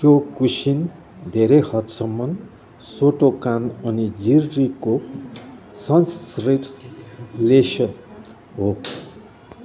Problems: background conversations at intervals